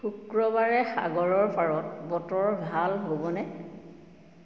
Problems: none marked